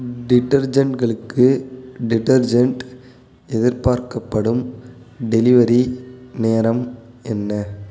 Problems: constant background noise